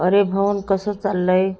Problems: constant background noise